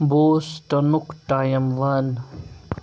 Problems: background sounds at intervals